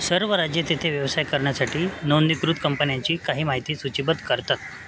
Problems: constant background noise